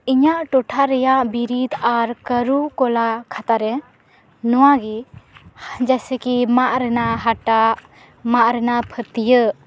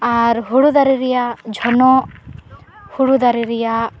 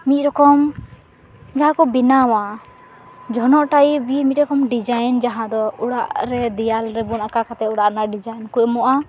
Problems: constant background noise